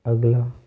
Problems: constant background noise